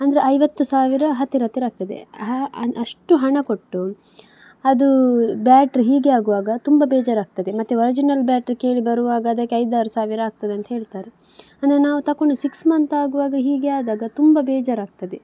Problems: none marked